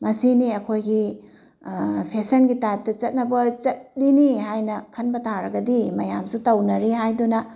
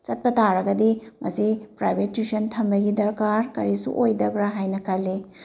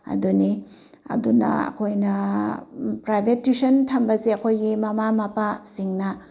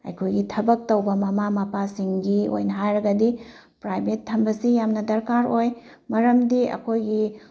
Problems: none marked